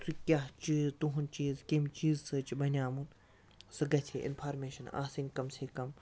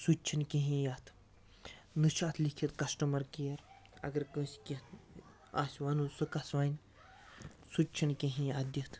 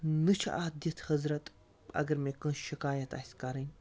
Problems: constant background noise